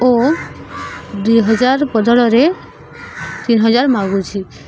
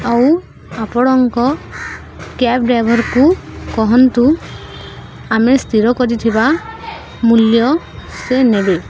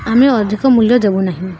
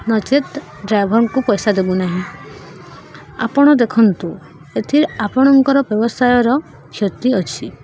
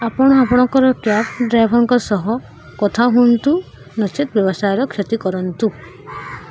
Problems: constant background noise